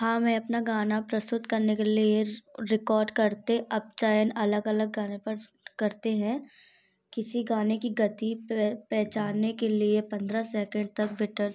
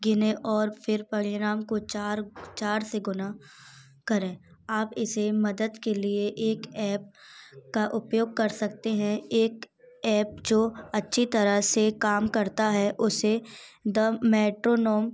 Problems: background sounds at intervals, background conversations at intervals